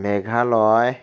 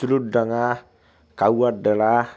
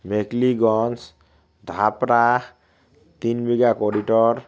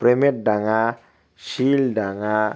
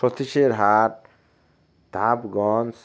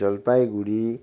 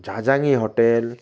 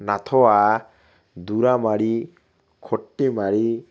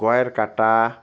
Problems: constant background noise